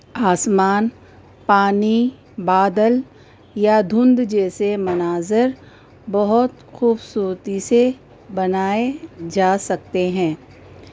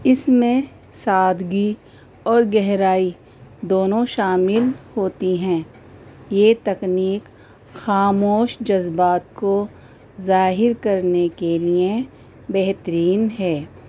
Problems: constant background noise